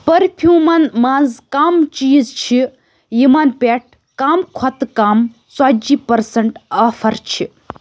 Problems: none marked